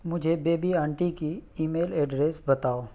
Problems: none marked